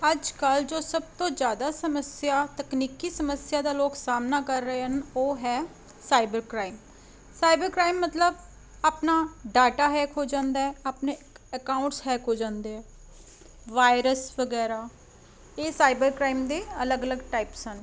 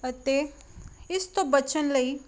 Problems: constant background noise